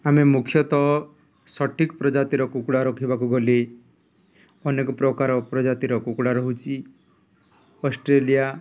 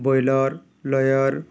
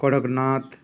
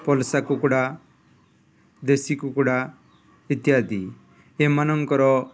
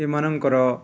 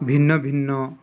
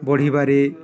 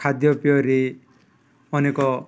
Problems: background sounds at intervals, background conversations at intervals